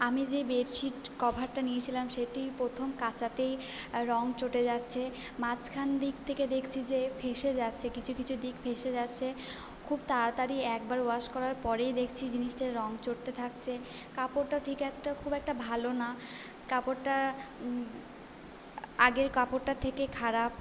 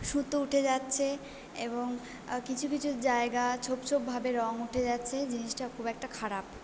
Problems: none marked